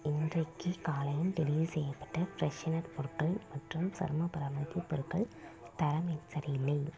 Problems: low volume